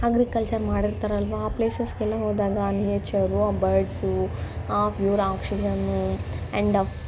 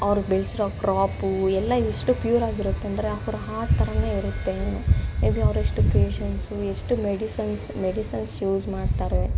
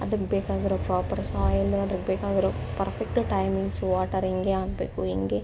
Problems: constant background noise